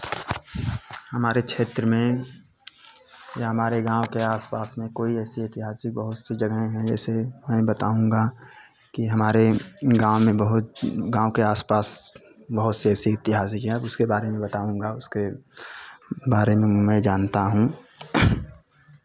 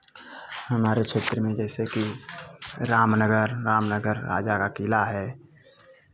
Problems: none marked